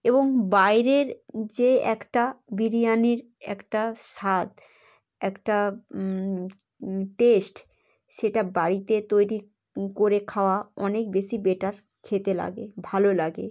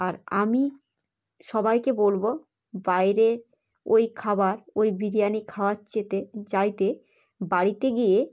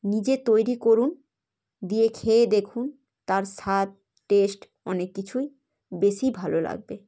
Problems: none marked